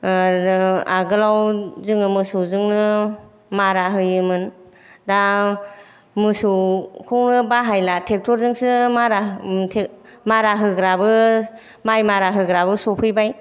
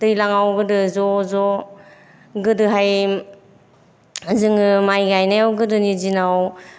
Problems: none marked